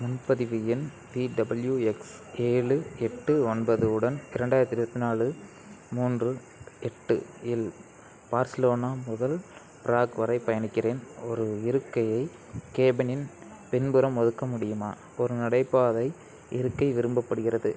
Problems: none marked